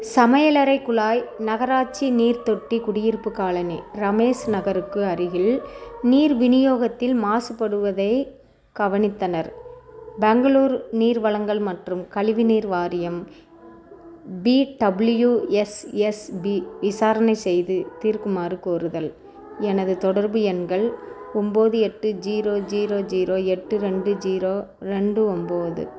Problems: continuous background conversations